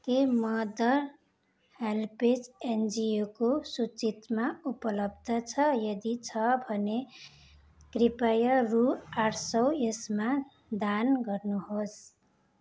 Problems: none marked